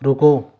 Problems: none marked